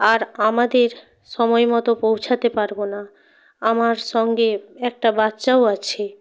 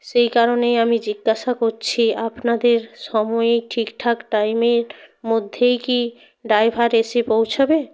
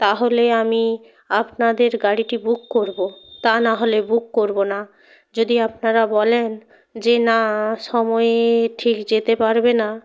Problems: constant background noise